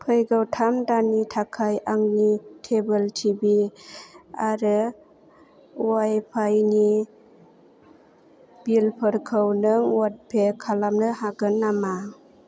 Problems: low volume